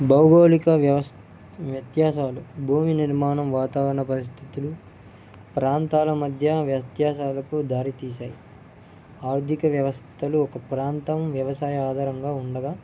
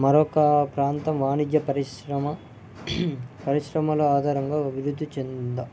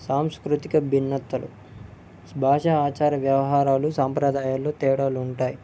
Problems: low volume